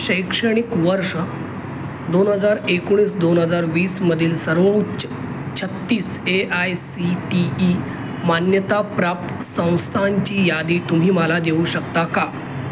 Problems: constant background noise